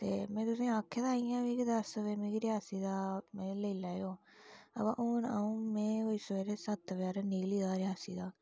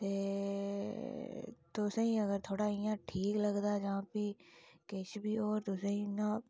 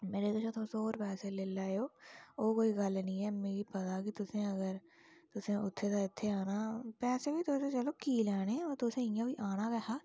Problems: low volume